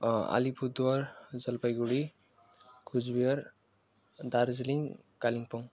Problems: none marked